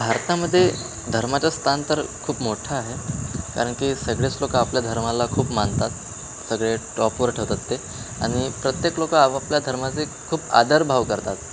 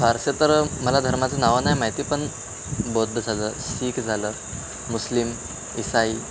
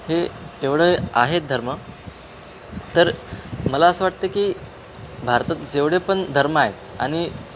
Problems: constant background noise, background conversations at intervals